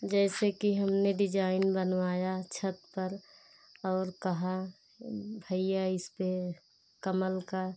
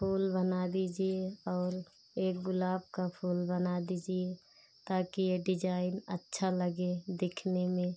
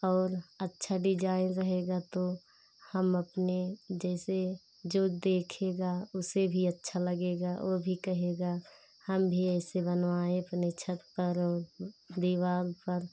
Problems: constant background noise